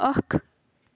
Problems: constant background noise